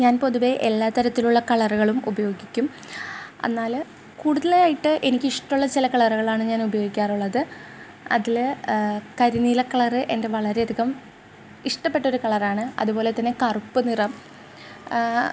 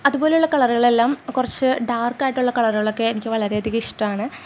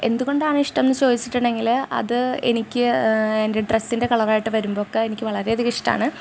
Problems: background sounds at intervals